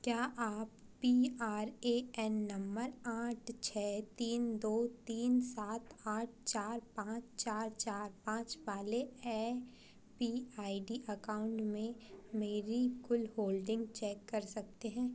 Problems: constant background noise